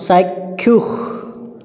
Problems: continuous background conversations, echo